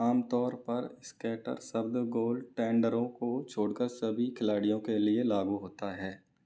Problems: background sounds at intervals